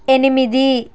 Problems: constant background noise